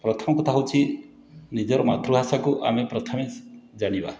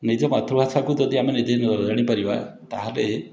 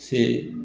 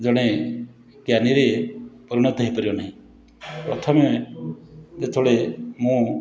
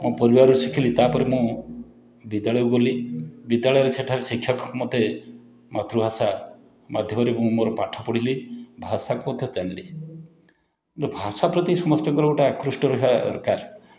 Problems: none marked